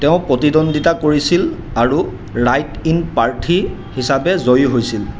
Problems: constant background noise